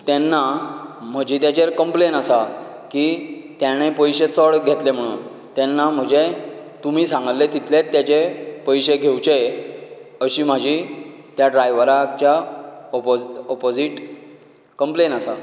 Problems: low volume